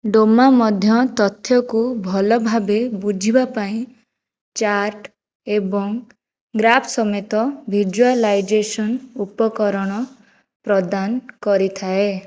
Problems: background sounds at intervals